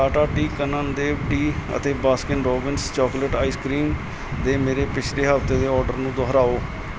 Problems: constant background noise